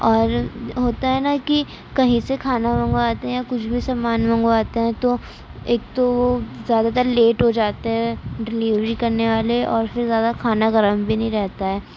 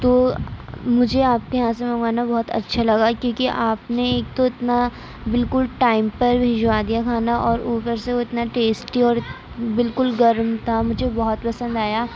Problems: constant background noise